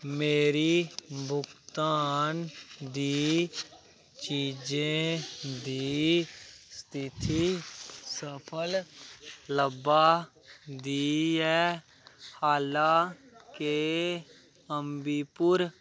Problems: constant background noise